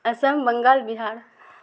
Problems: constant background noise